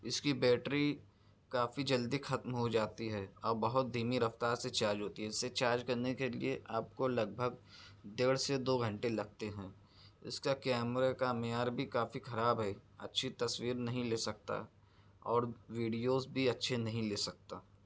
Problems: none marked